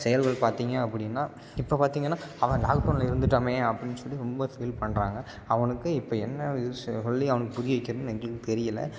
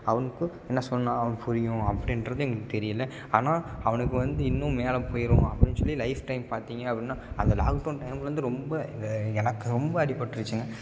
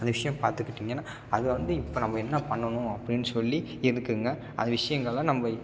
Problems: none marked